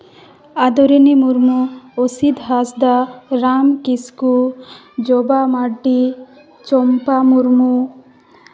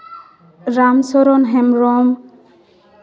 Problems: background conversations at intervals